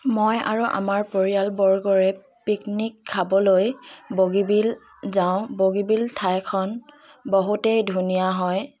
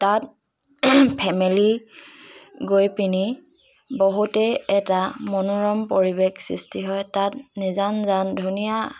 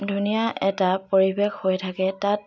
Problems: constant background noise, background conversations at intervals